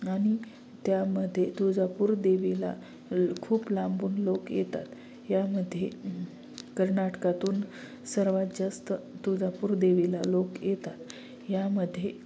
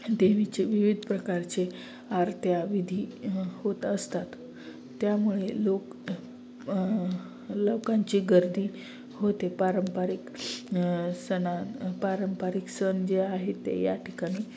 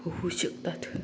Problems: none marked